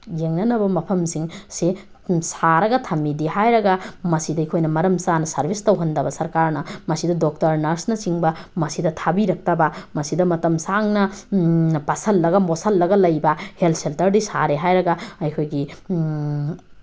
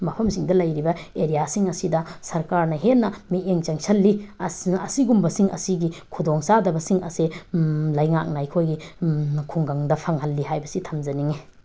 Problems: background sounds at intervals